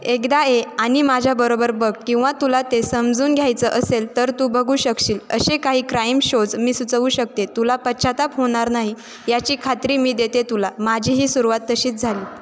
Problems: constant background noise, background conversations at intervals, echo